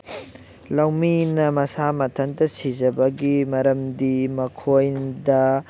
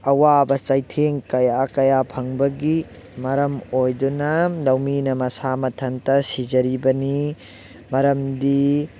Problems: constant background noise